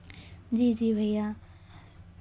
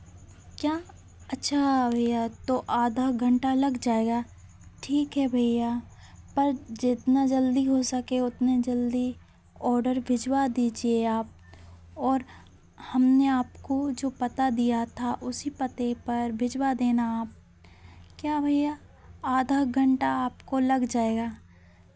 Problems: constant background noise, continuous background conversations